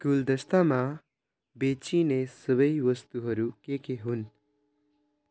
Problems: none marked